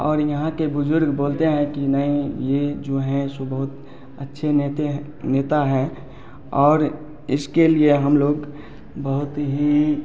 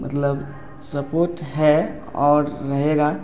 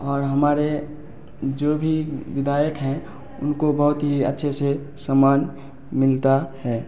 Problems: background sounds at intervals